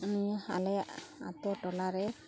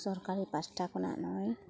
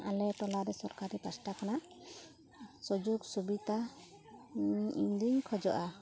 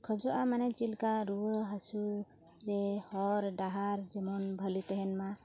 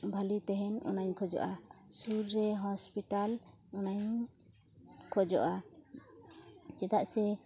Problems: none marked